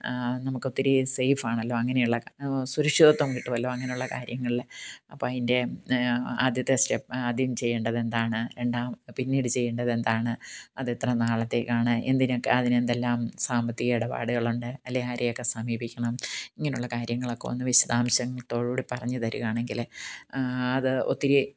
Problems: background sounds at intervals